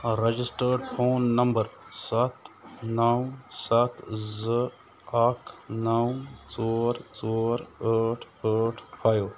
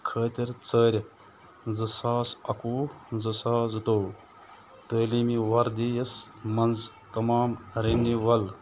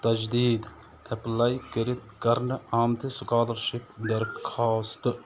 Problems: constant background noise